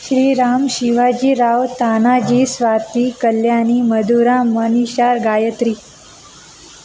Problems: constant background noise